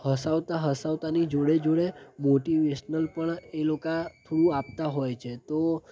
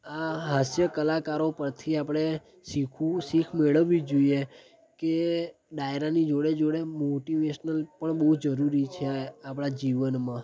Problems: background sounds at intervals